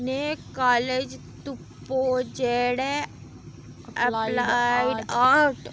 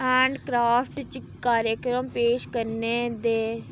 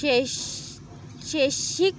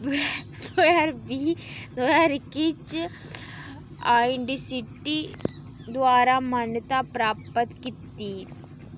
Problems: constant background noise